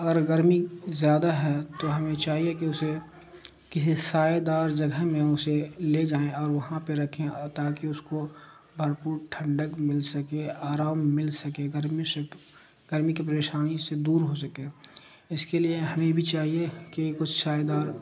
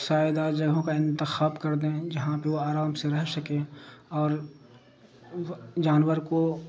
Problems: constant background noise